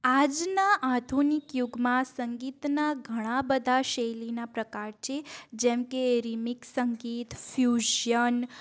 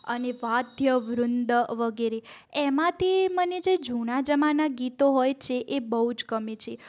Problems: background sounds at intervals